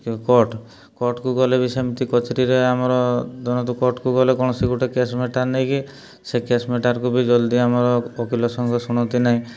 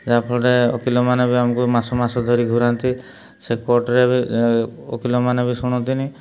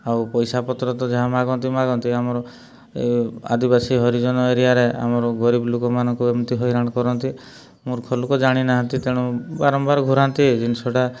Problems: none marked